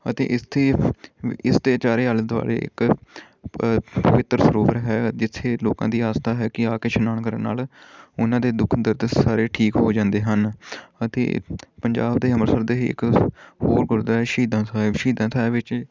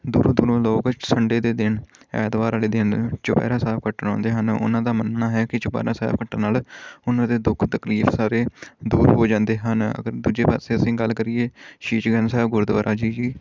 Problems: background sounds at intervals